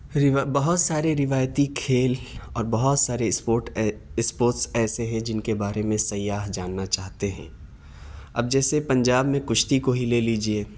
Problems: none marked